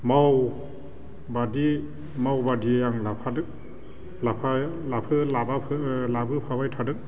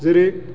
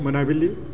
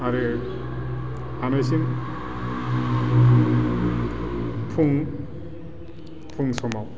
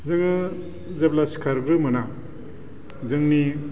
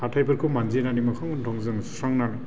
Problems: constant background noise